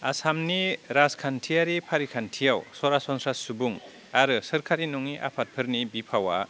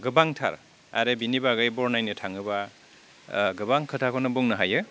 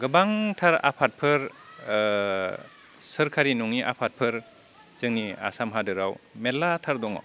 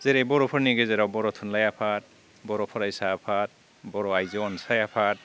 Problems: none marked